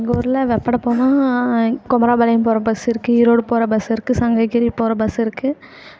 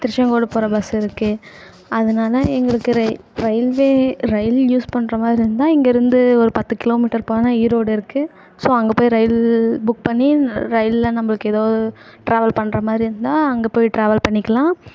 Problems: constant background noise